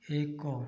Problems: low volume